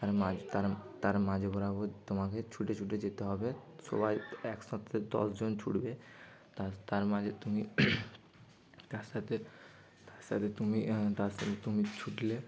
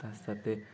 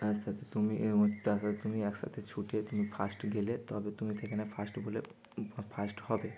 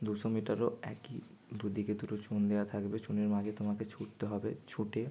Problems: constant background noise